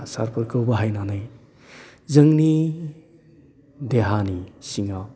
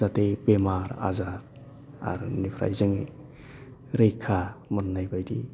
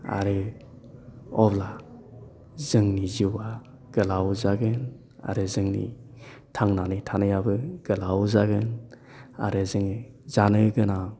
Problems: none marked